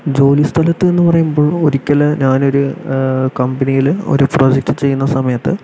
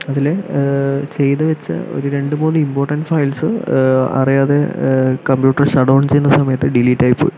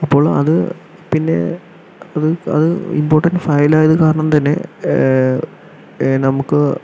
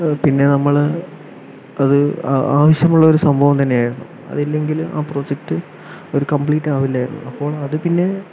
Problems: constant background noise, low volume